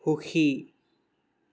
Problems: background sounds at intervals